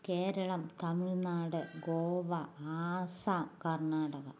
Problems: none marked